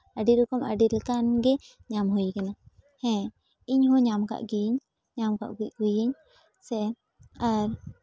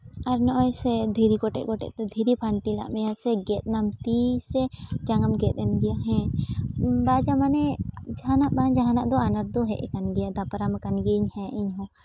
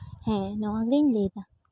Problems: none marked